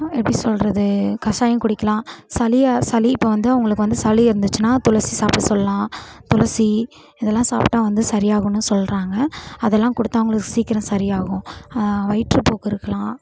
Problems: none marked